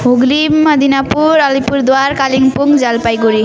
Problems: continuous background conversations